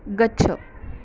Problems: background conversations at intervals